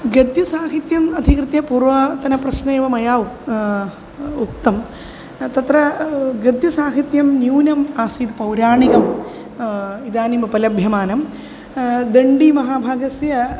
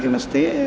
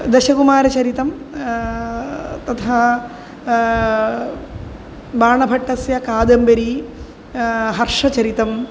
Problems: none marked